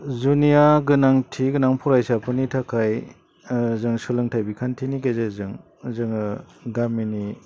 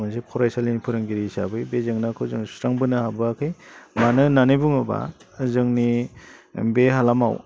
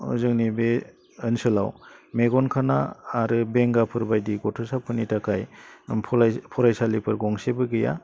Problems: low volume